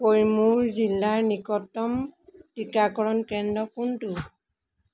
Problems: background sounds at intervals